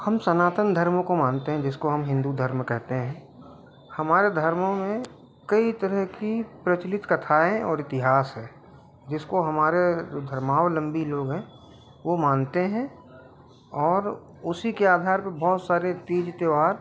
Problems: background sounds at intervals